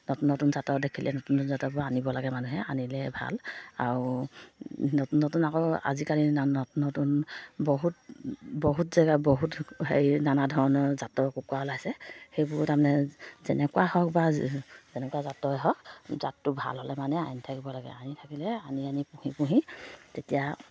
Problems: low volume